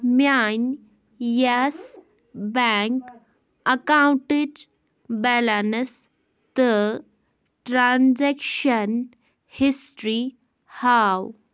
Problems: background sounds at intervals